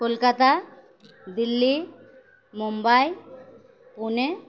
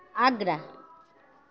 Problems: none marked